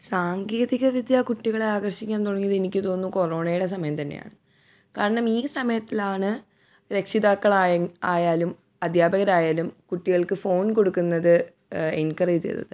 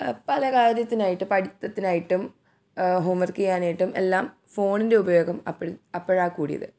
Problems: none marked